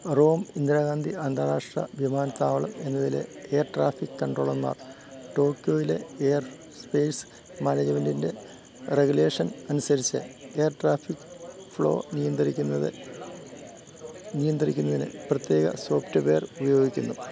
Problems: constant background noise, background conversations at intervals, low volume